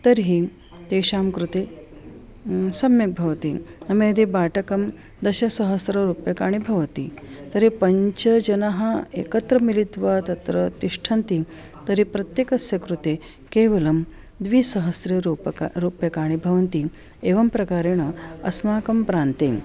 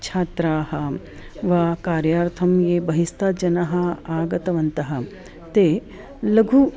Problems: none marked